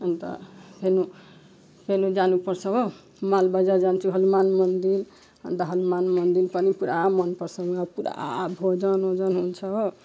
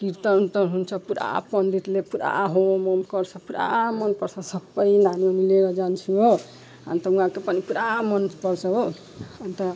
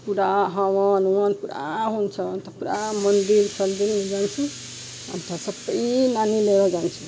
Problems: background sounds at intervals